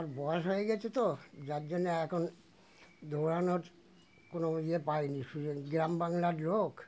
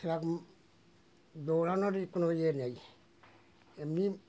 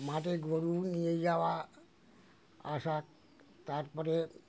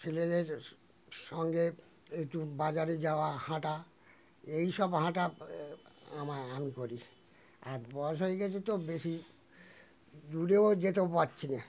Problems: none marked